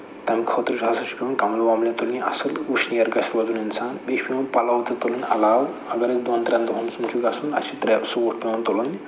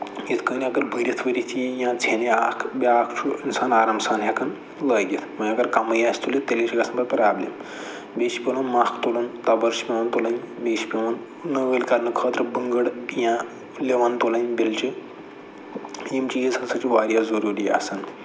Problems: none marked